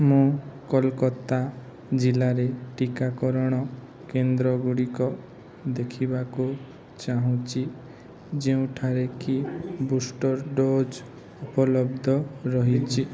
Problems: none marked